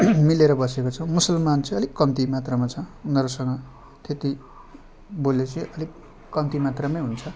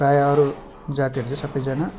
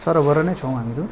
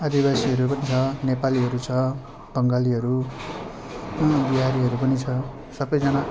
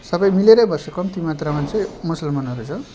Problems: none marked